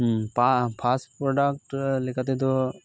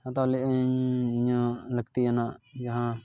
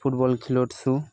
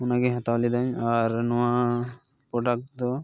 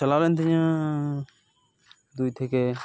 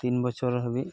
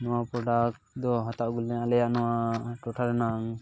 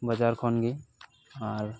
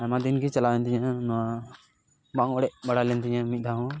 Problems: background sounds at intervals, background conversations at intervals